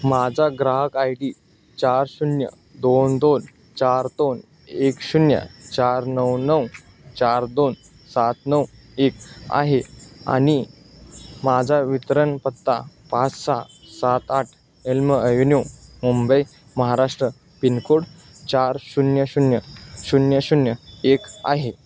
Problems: constant background noise